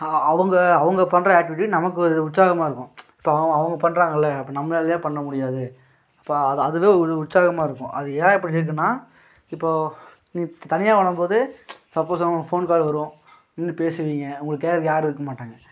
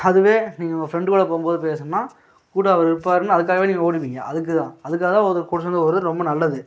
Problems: none marked